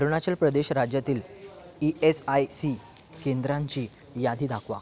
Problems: continuous background conversations